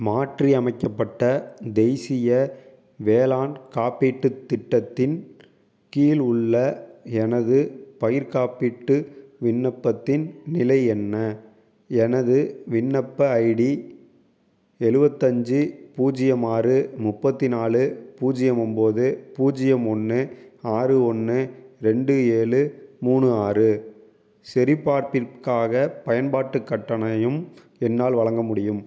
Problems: none marked